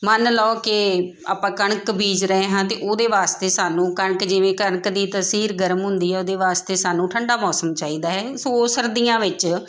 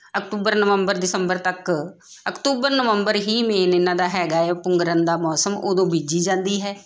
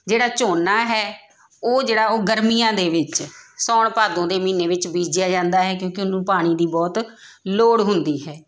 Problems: none marked